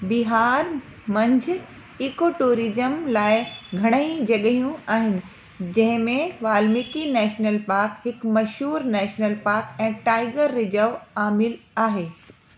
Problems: constant background noise